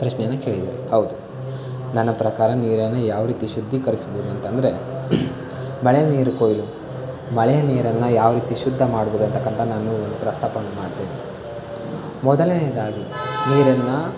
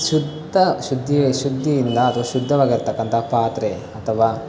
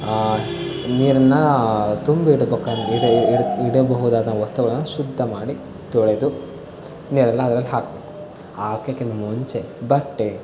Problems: constant background noise